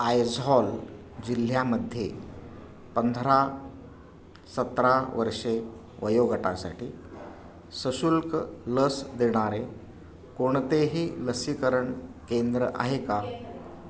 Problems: none marked